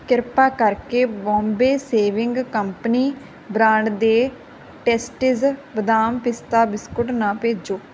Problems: none marked